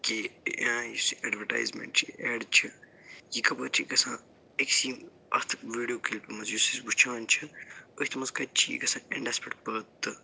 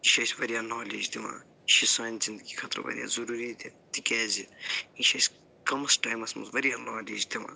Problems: low volume